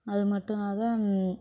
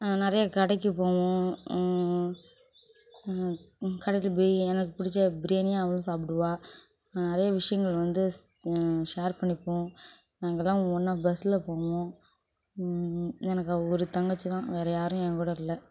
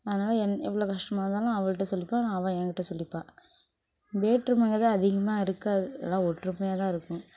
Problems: background sounds at intervals